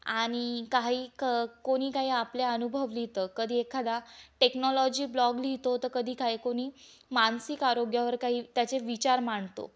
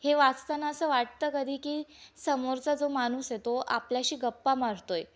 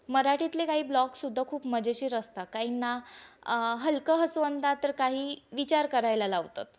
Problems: constant background noise, background conversations at intervals